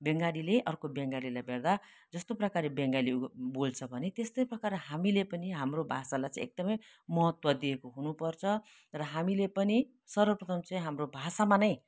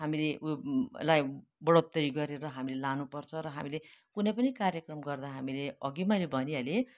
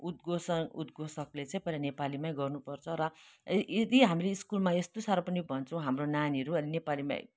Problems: none marked